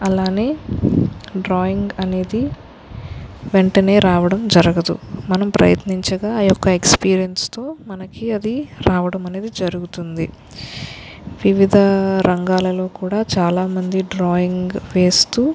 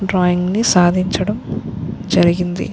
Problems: constant background noise